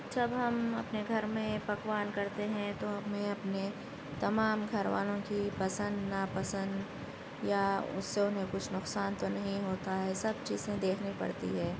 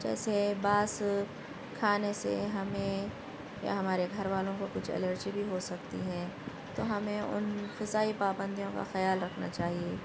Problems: constant background noise, continuous background conversations